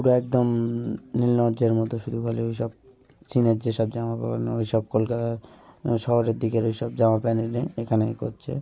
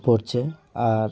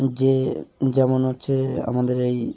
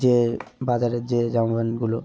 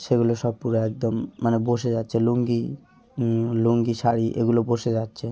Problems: none marked